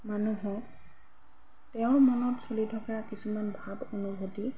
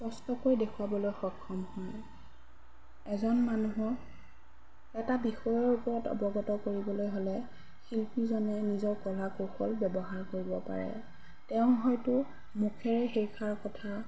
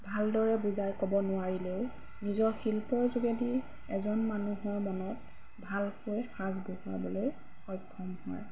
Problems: background sounds at intervals